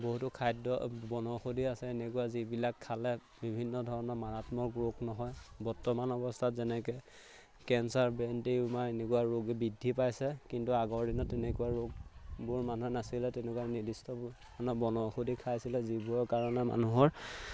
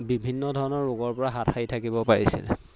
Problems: none marked